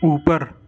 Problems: none marked